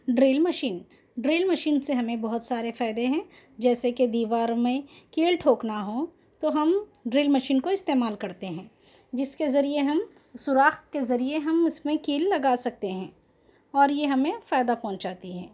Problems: constant background noise